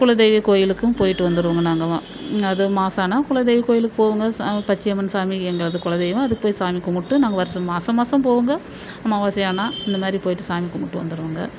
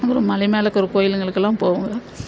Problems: constant background noise